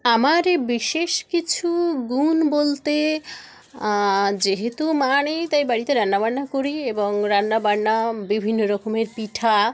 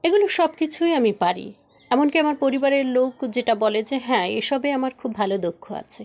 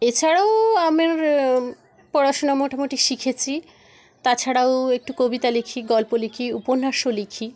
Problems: background conversations at intervals